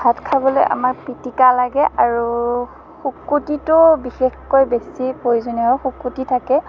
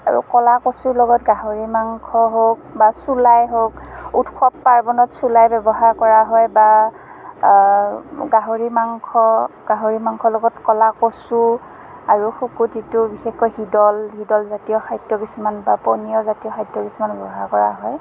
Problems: none marked